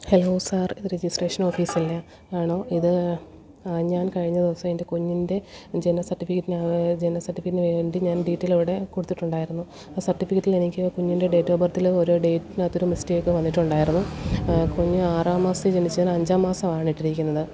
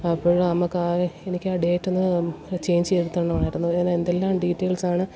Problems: constant background noise, low volume